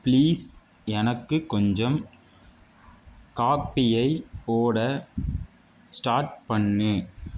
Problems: none marked